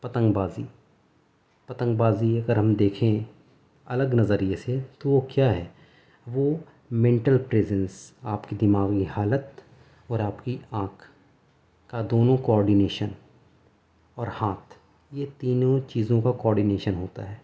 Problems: background sounds at intervals